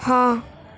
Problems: constant background noise